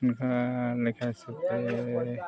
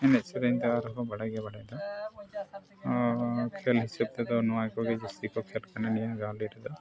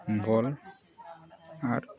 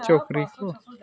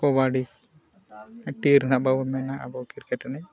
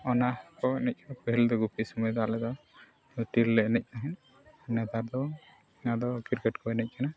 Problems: background sounds at intervals, continuous background conversations, low volume